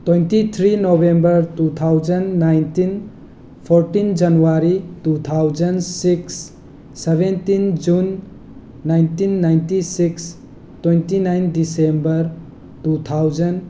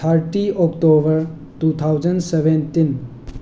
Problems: background sounds at intervals